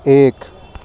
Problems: none marked